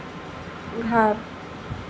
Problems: constant background noise, low volume